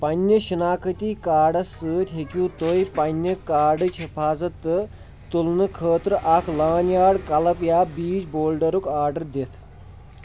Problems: background sounds at intervals